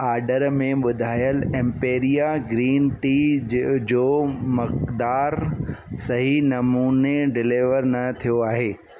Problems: constant background noise, echo